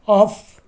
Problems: background sounds at intervals